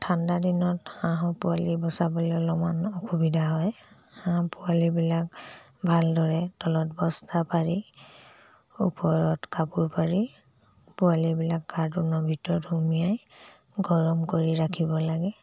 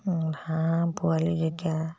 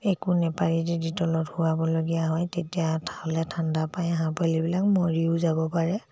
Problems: low volume